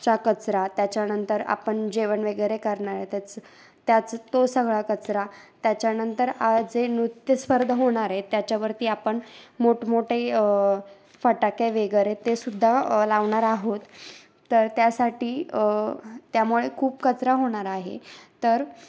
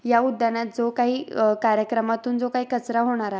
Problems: background sounds at intervals